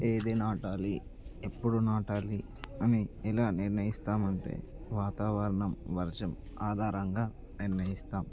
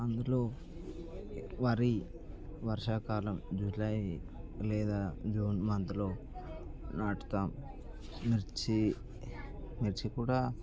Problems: background conversations at intervals